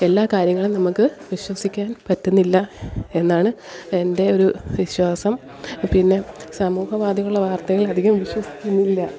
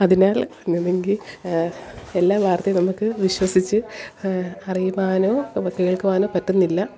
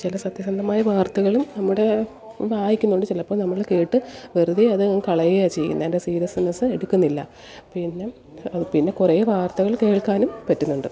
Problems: background sounds at intervals, background conversations at intervals